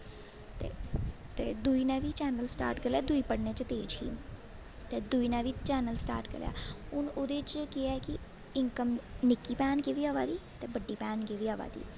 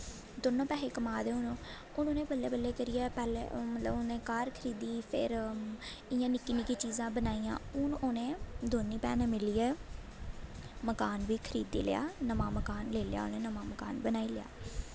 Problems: constant background noise